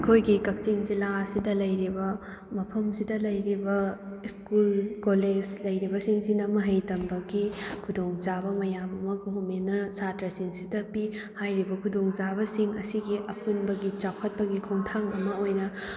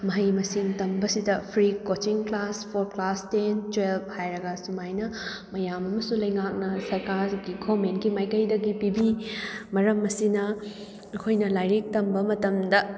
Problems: background sounds at intervals